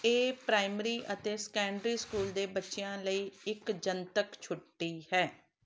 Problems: background sounds at intervals